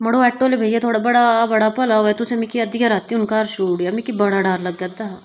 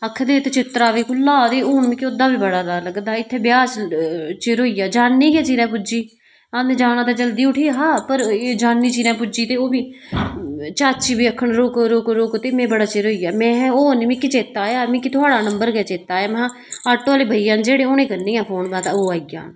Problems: background sounds at intervals